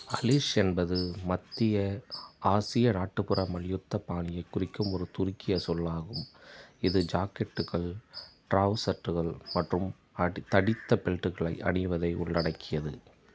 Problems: background sounds at intervals